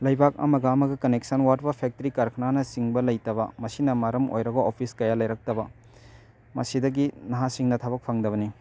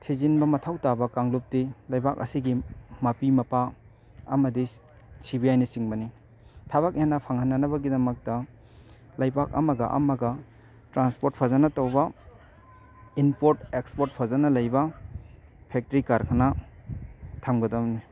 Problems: constant background noise